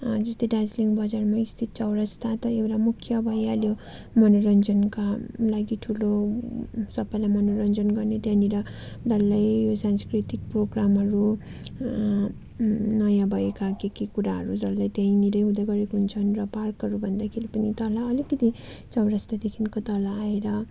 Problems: constant background noise